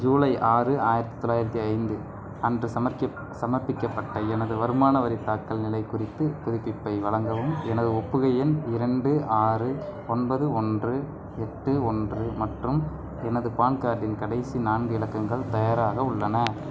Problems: constant background noise, background conversations at intervals, low volume